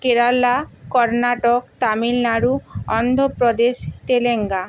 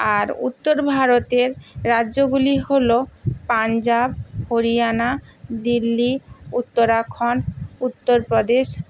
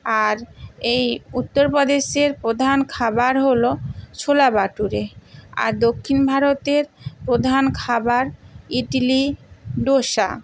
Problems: constant background noise